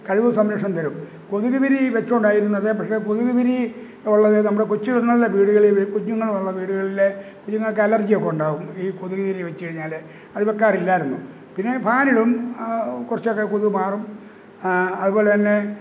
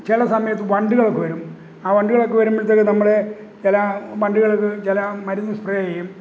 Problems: constant background noise